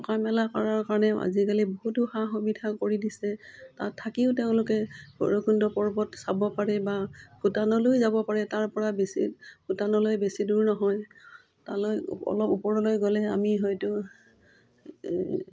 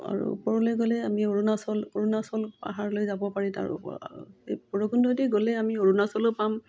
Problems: none marked